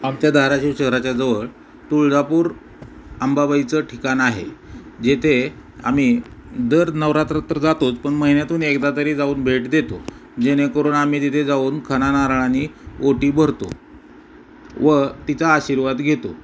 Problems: background sounds at intervals